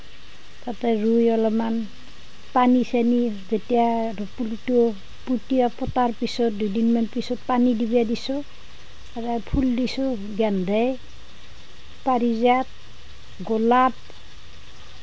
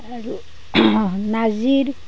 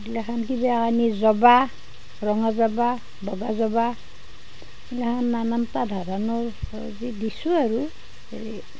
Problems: none marked